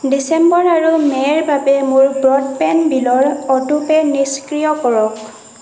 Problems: none marked